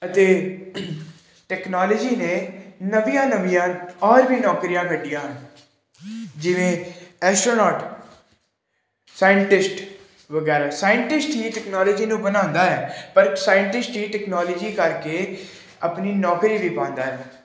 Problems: none marked